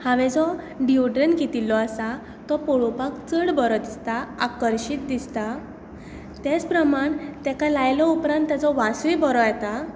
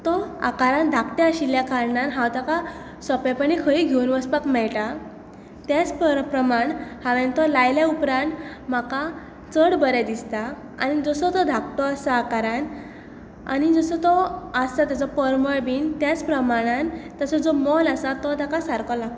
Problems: none marked